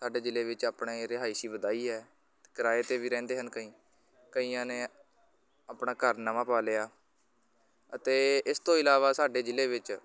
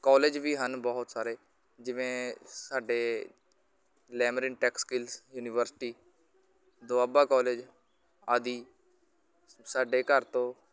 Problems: constant background noise